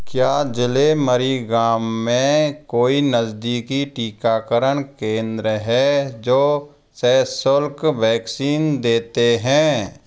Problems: none marked